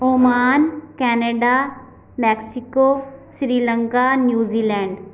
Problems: background sounds at intervals